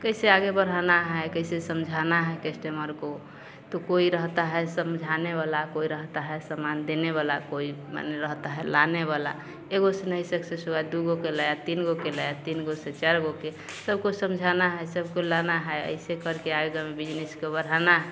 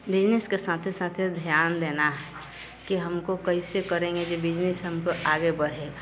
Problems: none marked